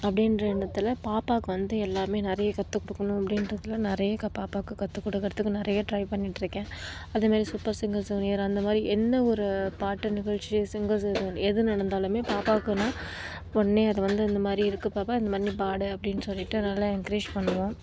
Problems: background sounds at intervals, low volume